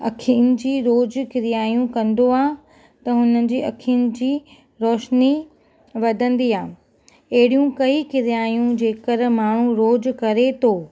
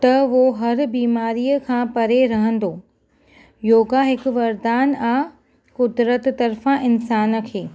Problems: none marked